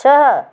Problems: none marked